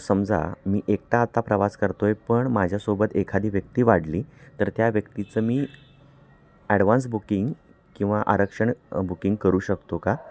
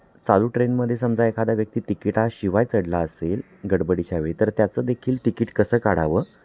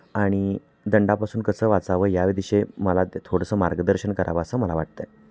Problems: constant background noise, continuous background conversations